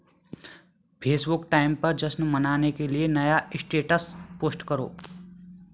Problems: none marked